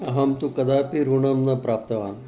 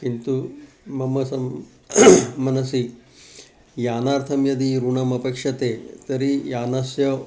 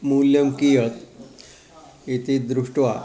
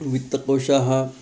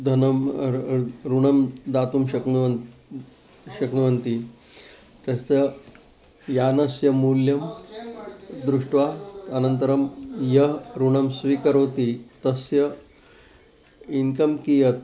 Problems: constant background noise, continuous background conversations